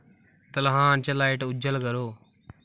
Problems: none marked